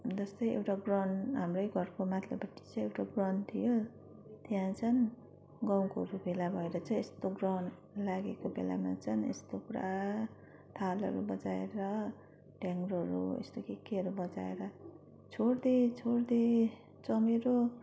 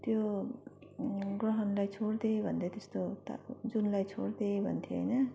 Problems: none marked